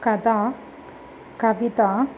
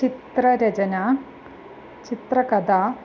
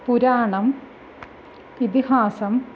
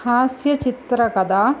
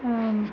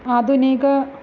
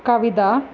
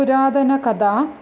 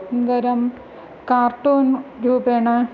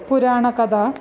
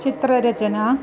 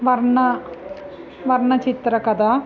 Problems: none marked